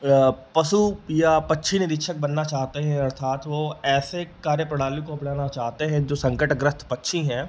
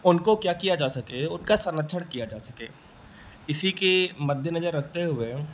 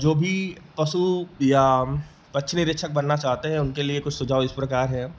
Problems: none marked